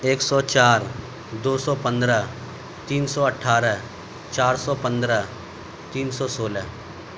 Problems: none marked